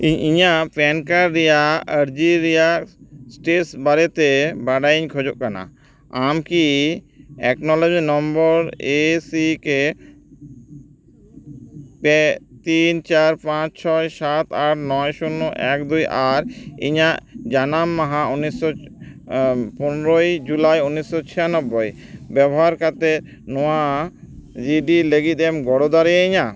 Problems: background sounds at intervals